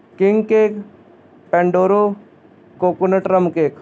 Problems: constant background noise